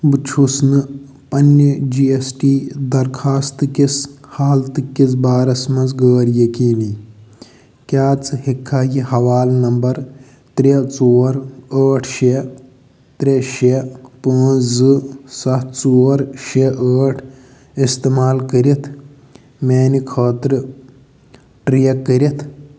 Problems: none marked